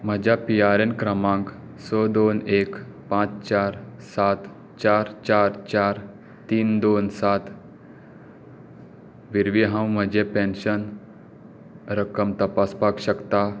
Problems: none marked